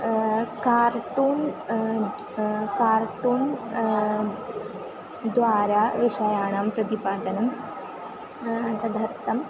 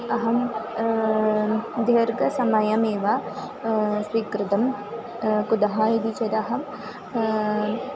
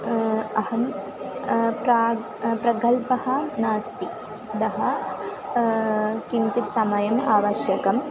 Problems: constant background noise